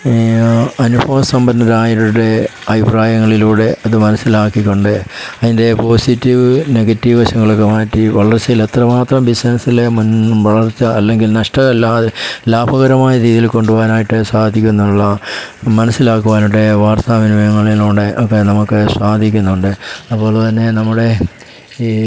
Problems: constant background noise